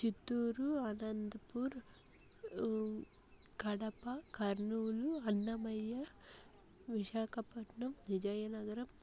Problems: low volume